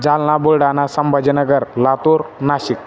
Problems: constant background noise, background conversations at intervals